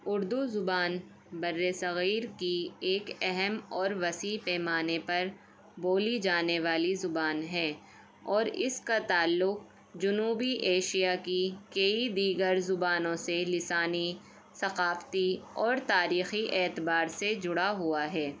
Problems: none marked